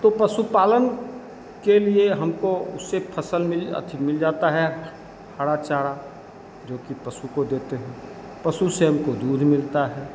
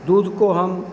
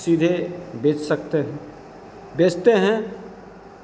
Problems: constant background noise, background conversations at intervals